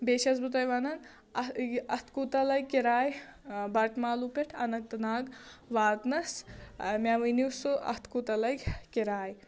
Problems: background sounds at intervals